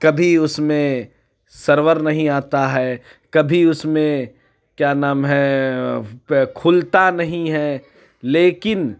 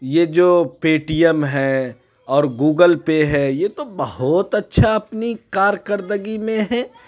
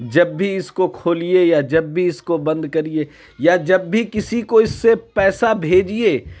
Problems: none marked